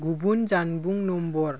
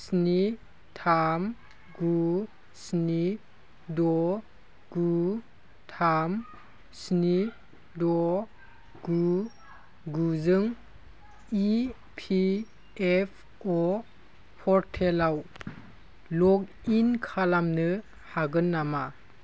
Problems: constant background noise